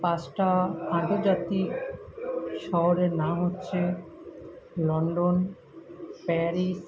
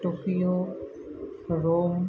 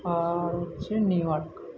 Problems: background sounds at intervals, continuous background conversations